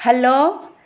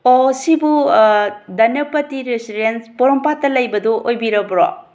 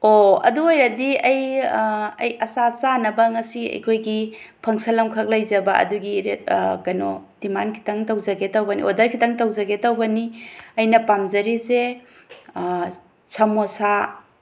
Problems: background sounds at intervals